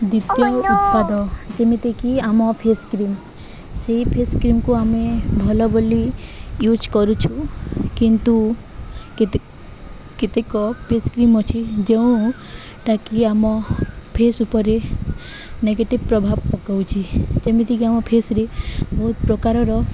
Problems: constant background noise